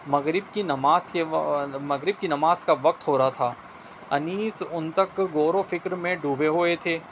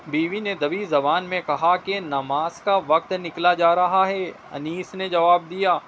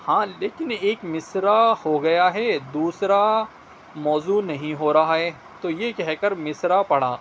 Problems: constant background noise